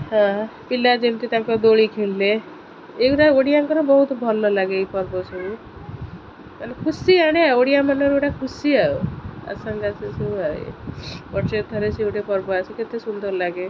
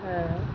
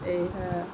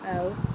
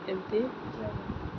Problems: constant background noise